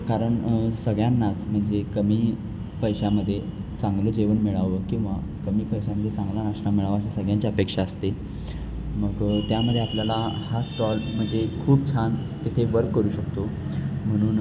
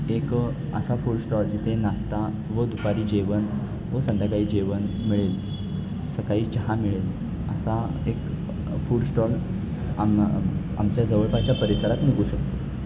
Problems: constant background noise